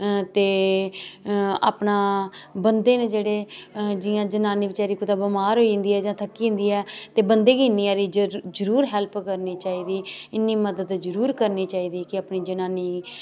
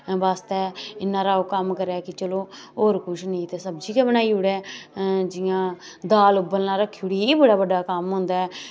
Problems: none marked